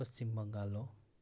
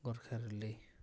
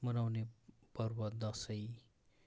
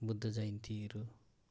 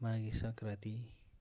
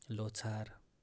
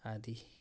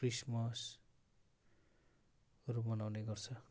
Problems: none marked